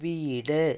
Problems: low volume